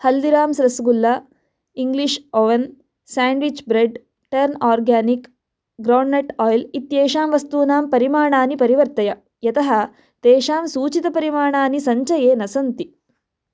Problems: none marked